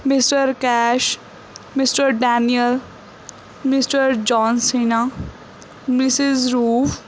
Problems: none marked